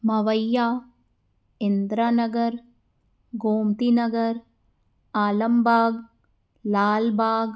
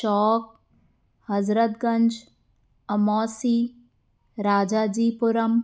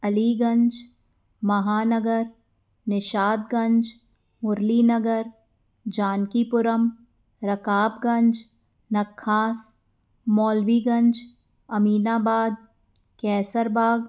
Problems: none marked